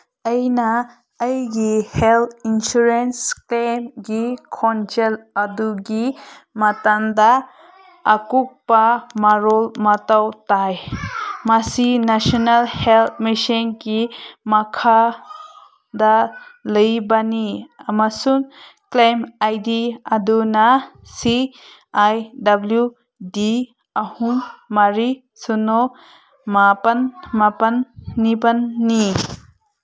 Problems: background sounds at intervals